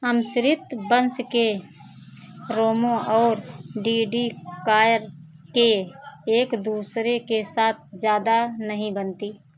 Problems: constant background noise